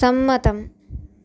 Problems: none marked